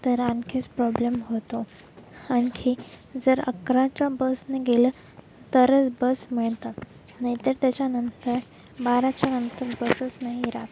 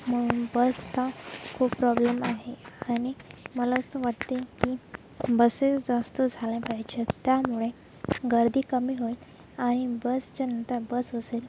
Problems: constant background noise